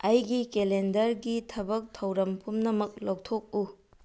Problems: none marked